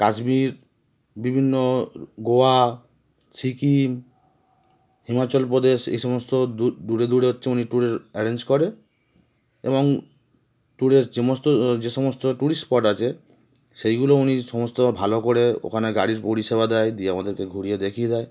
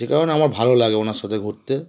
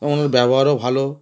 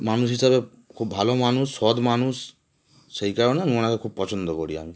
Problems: constant background noise